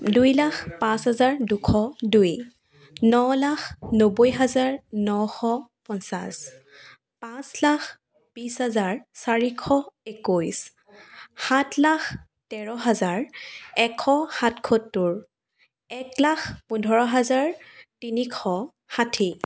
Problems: background sounds at intervals, background conversations at intervals